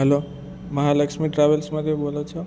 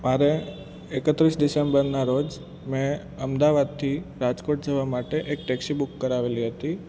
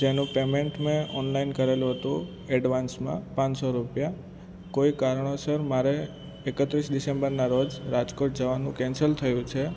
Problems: constant background noise